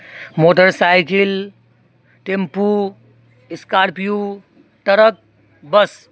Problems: constant background noise